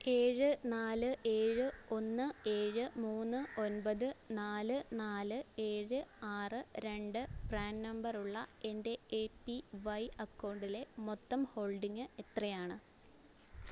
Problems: background sounds at intervals